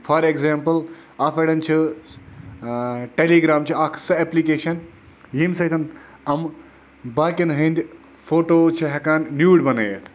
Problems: constant background noise